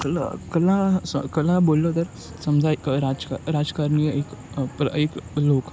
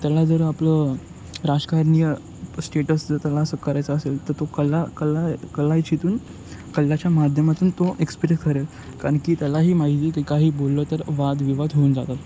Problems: none marked